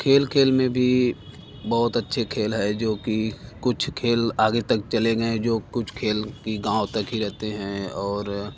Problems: constant background noise